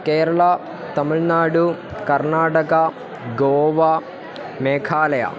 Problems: continuous background conversations